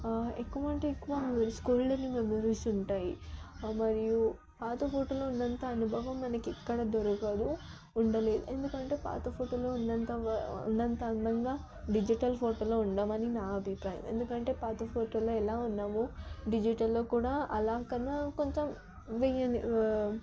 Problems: background conversations at intervals, low volume